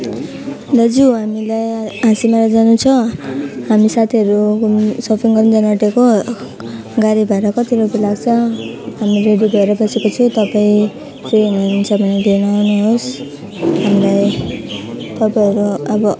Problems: background sounds at intervals